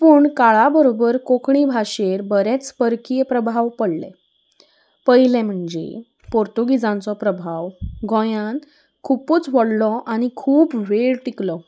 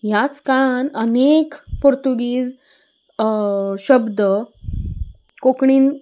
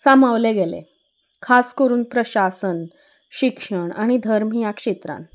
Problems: background sounds at intervals